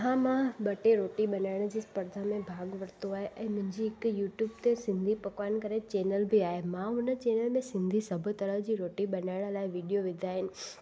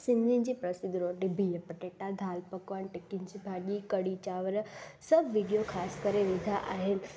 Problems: constant background noise